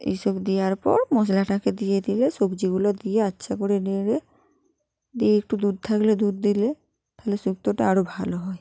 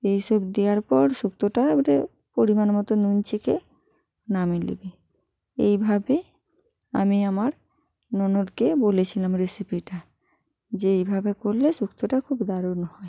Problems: background sounds at intervals